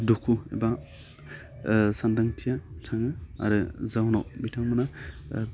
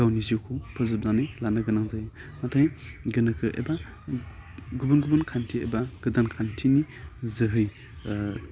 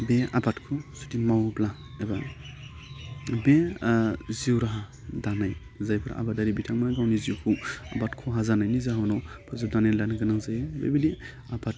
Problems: low volume